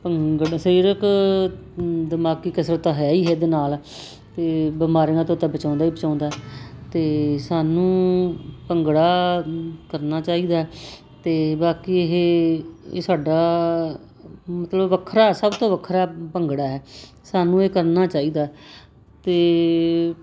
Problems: constant background noise